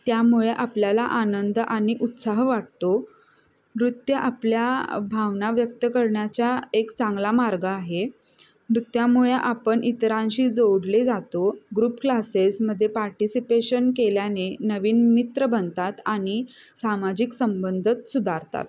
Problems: constant background noise, background conversations at intervals